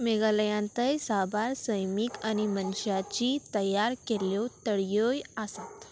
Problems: constant background noise